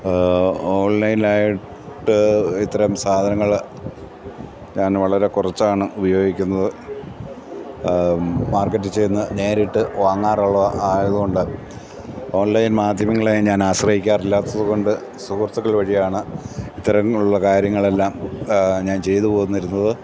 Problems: none marked